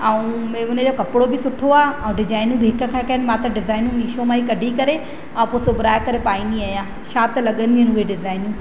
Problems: constant background noise, echo